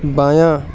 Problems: constant background noise